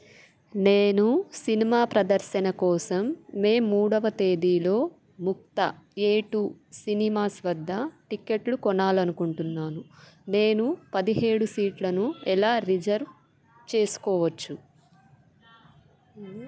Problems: background sounds at intervals